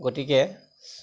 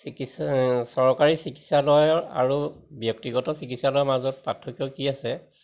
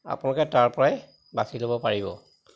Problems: constant background noise, background conversations at intervals